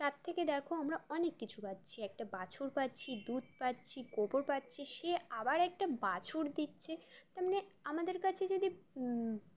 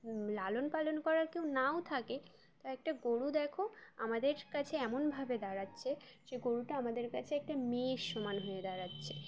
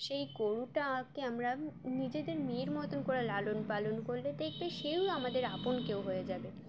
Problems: constant background noise, background conversations at intervals